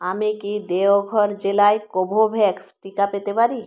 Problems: none marked